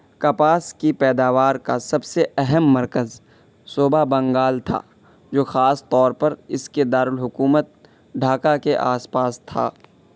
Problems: constant background noise